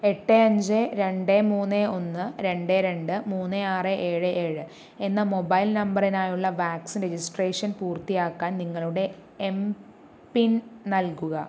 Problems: none marked